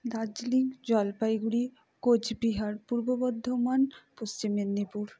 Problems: none marked